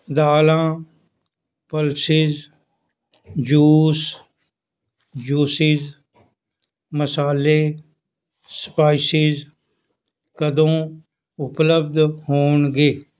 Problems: none marked